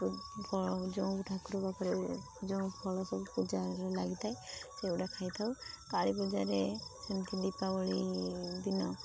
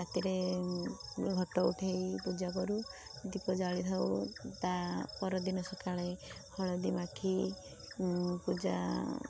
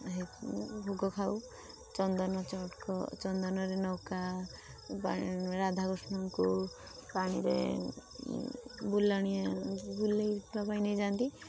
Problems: constant background noise